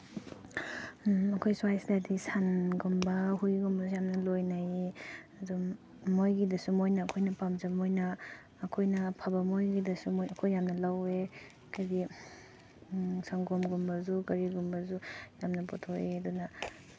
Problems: background sounds at intervals, low volume